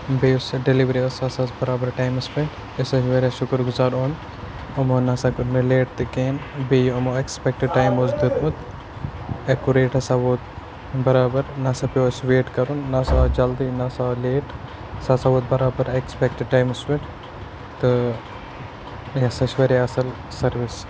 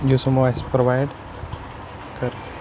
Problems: constant background noise, background conversations at intervals